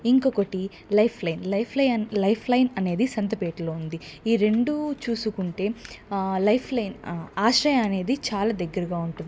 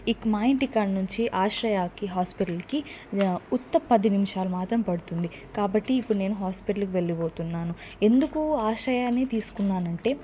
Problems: constant background noise